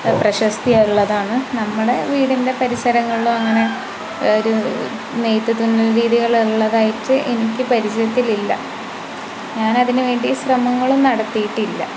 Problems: constant background noise